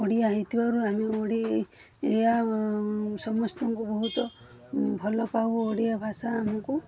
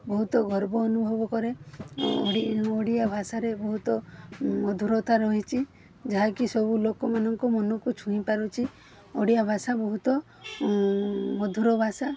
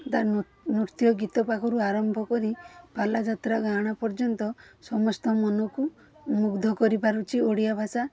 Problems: background sounds at intervals